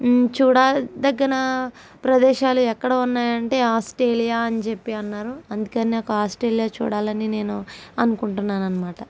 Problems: none marked